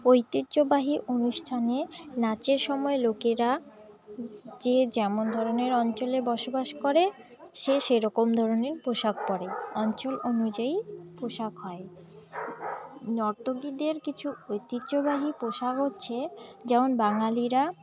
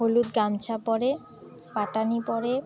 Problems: background sounds at intervals